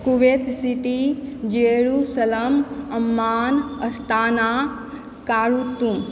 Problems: background sounds at intervals, background conversations at intervals